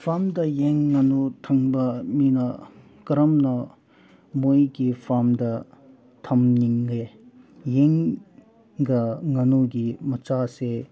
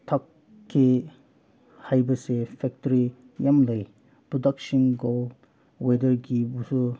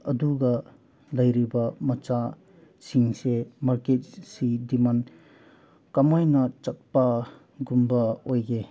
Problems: background conversations at intervals